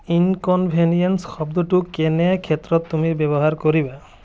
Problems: background sounds at intervals